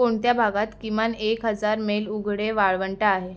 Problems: background sounds at intervals